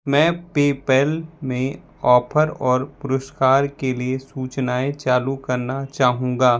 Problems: none marked